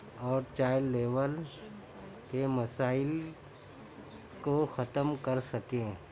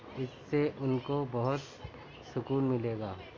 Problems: constant background noise, background conversations at intervals